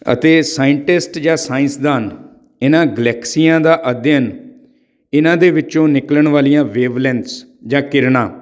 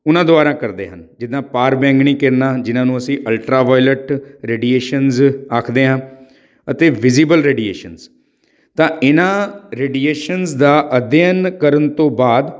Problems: none marked